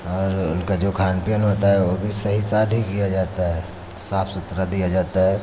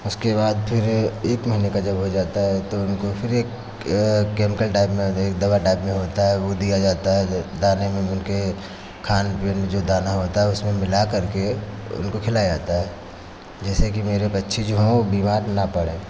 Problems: constant background noise